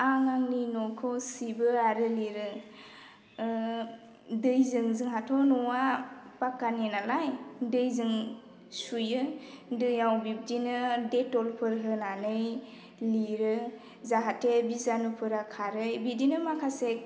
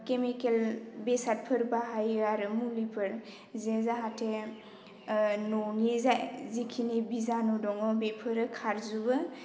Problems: constant background noise